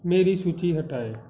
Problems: background sounds at intervals